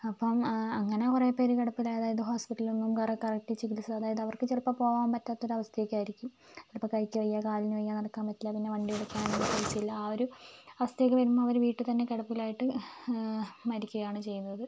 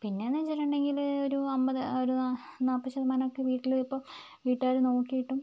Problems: background sounds at intervals